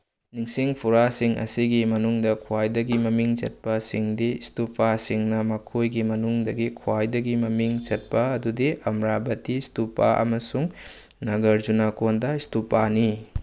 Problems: none marked